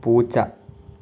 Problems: none marked